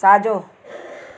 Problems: constant background noise